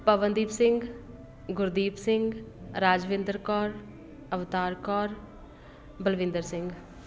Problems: constant background noise